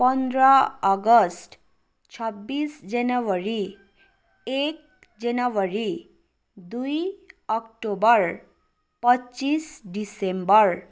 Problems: none marked